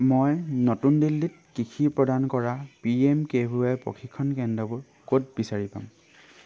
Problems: constant background noise